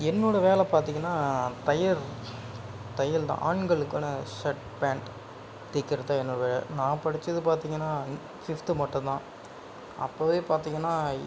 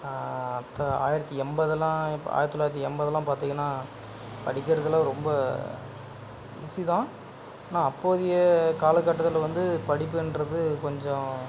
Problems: background sounds at intervals, background conversations at intervals